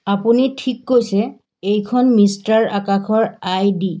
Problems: background sounds at intervals